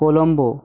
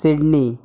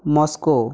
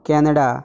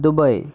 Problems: background sounds at intervals